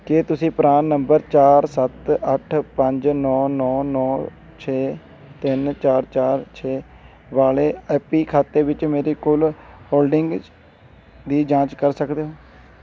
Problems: constant background noise